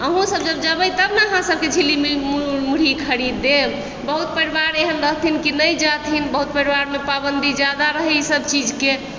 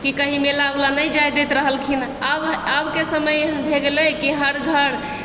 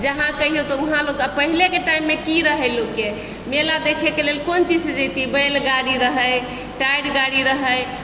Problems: background sounds at intervals